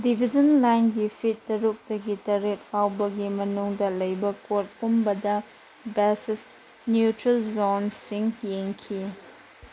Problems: constant background noise